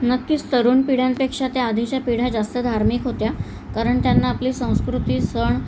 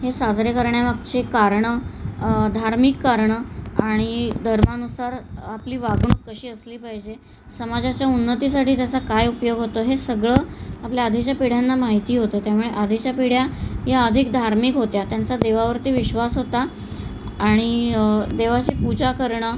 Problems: none marked